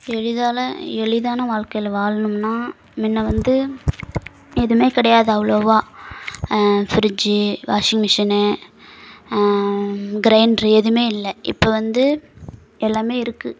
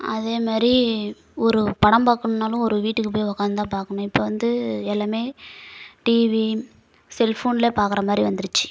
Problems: constant background noise